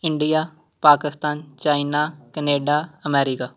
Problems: background sounds at intervals